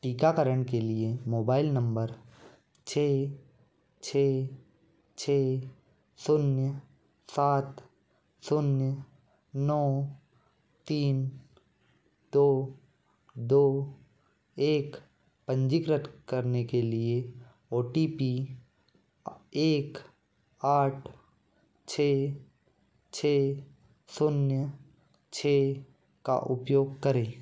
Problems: constant background noise